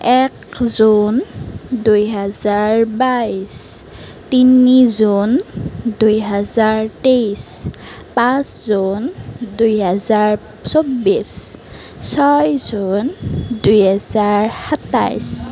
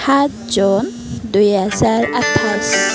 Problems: background sounds at intervals